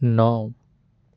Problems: constant background noise